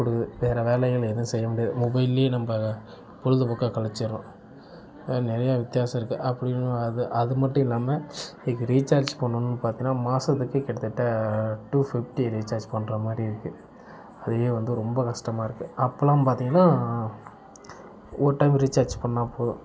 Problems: none marked